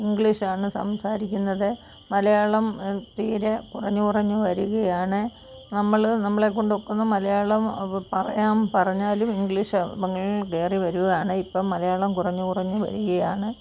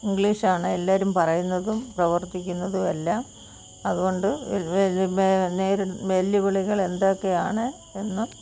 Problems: constant background noise